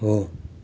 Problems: none marked